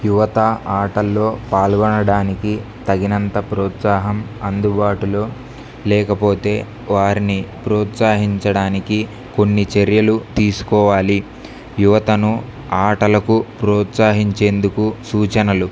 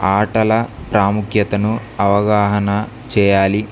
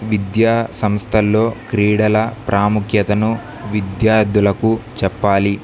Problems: none marked